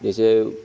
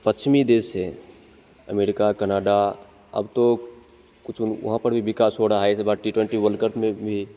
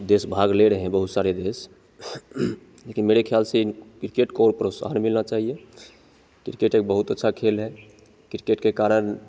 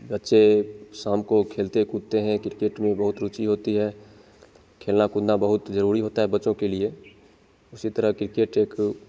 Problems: none marked